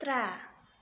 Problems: none marked